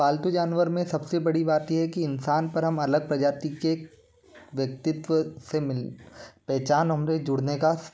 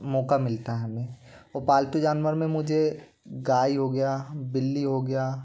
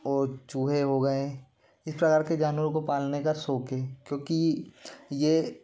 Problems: constant background noise